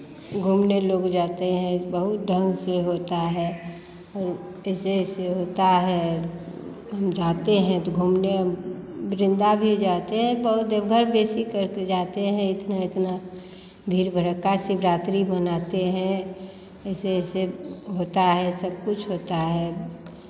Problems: none marked